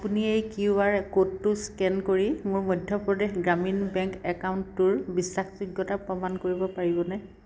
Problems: constant background noise